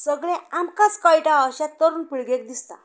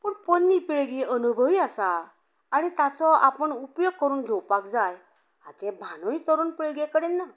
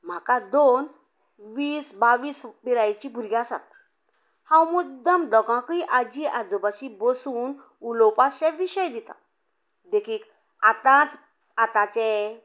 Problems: background conversations at intervals